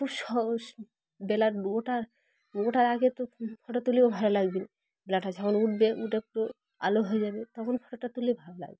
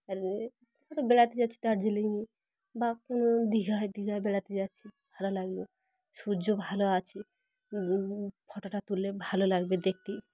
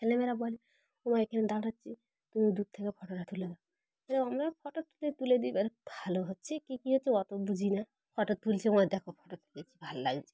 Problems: background sounds at intervals, continuous background conversations